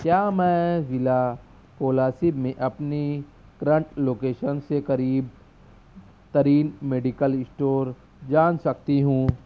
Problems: none marked